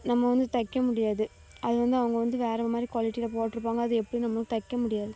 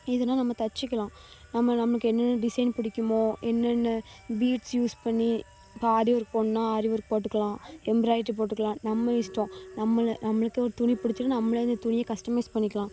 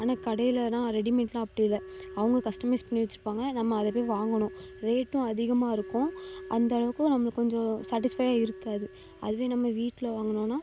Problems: none marked